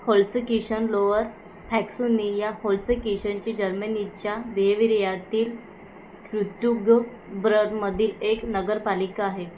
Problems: background sounds at intervals